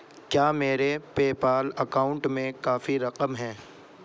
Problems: constant background noise